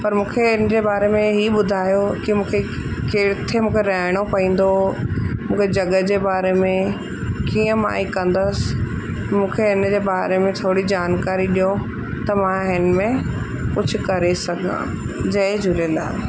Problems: constant background noise